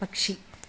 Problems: low volume